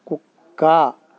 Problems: constant background noise